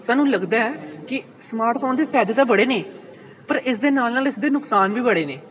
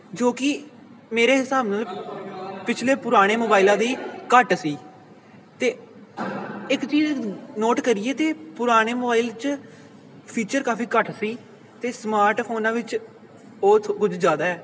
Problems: background sounds at intervals